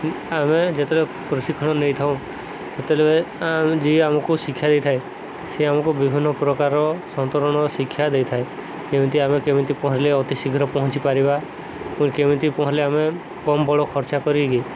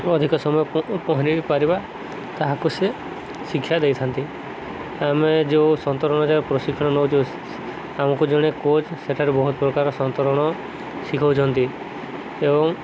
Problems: constant background noise